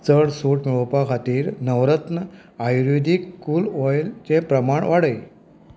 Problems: background sounds at intervals